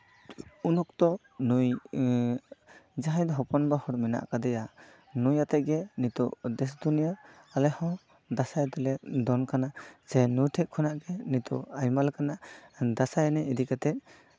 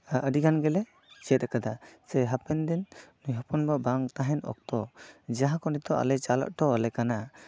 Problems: none marked